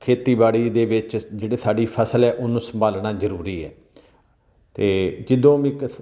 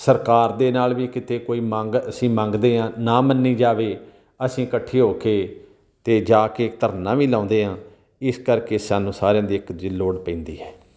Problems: none marked